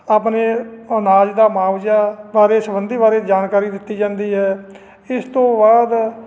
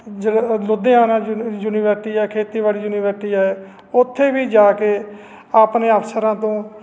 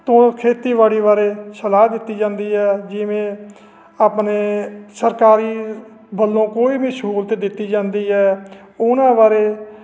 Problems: none marked